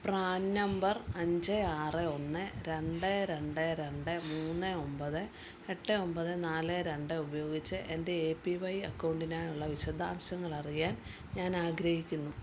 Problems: low volume